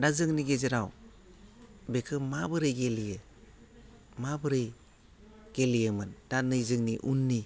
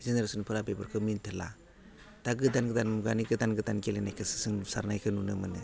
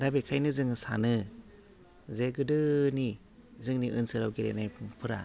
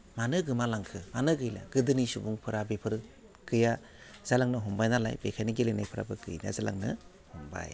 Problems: low volume